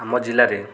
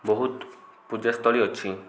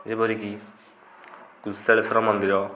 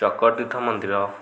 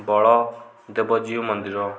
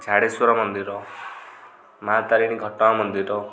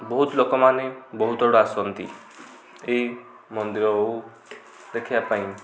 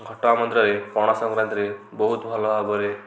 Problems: low volume